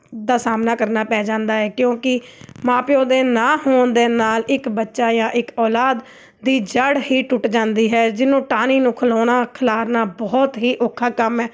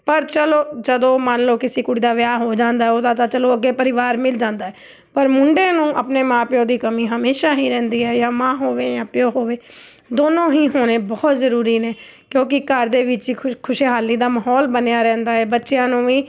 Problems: none marked